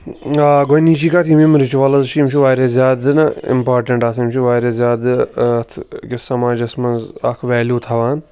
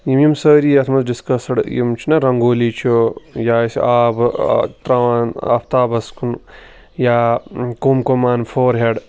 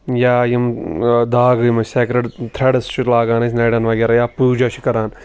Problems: background sounds at intervals